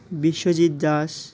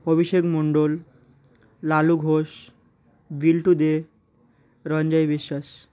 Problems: constant background noise